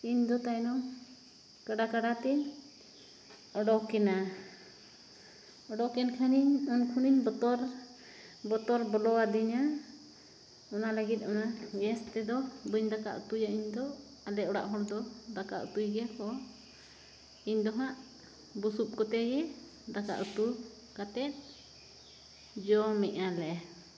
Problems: background sounds at intervals